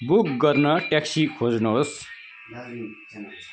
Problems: constant background noise